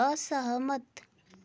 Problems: none marked